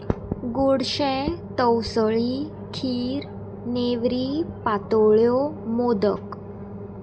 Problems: constant background noise